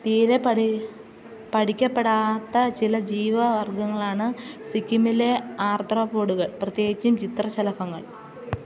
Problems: background sounds at intervals